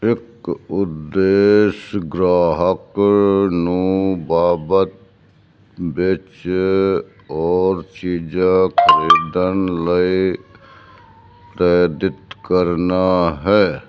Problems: background sounds at intervals